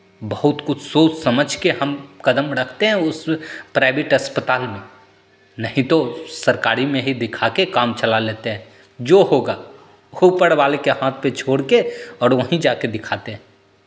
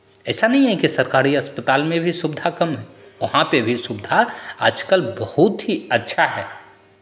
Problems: constant background noise